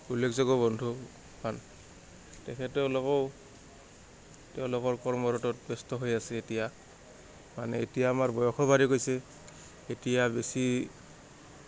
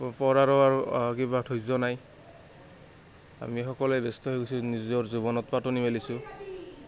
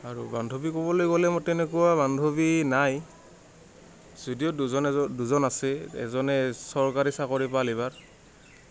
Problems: none marked